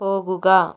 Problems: none marked